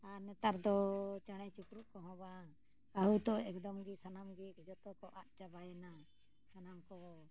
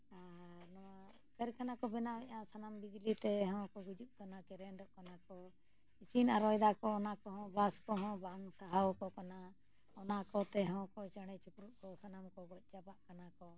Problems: low volume